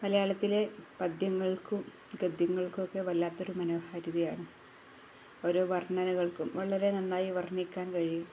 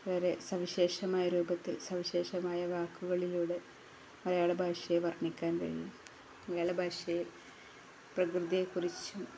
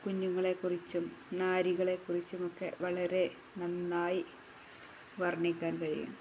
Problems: none marked